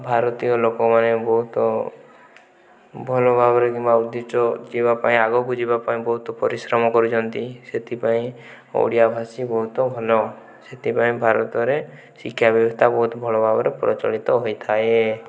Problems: background conversations at intervals